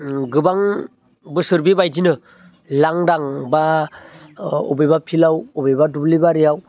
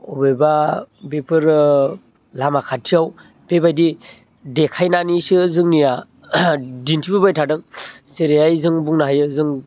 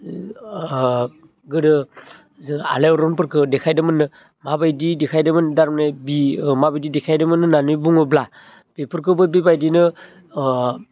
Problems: low volume